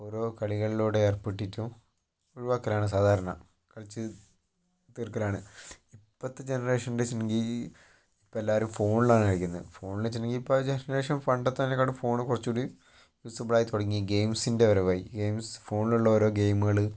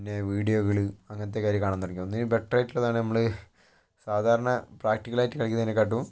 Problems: low volume